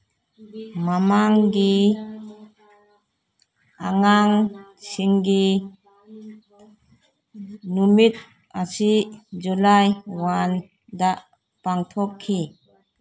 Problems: background conversations at intervals